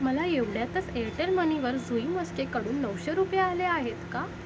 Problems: constant background noise